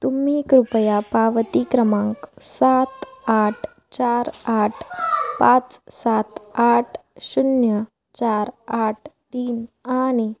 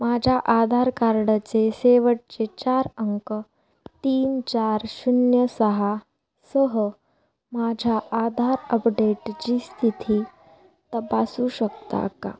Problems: constant background noise, continuous background conversations